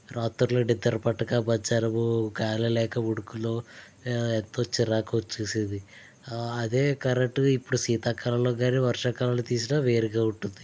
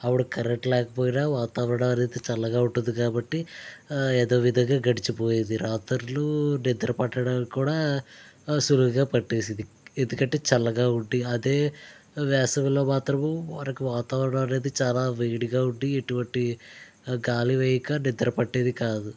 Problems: none marked